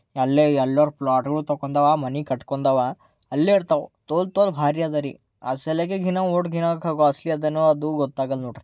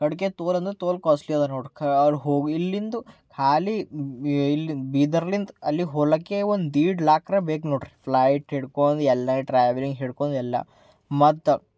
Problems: none marked